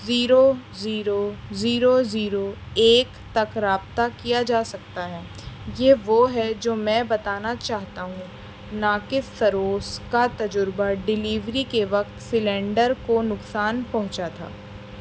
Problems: constant background noise